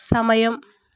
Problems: none marked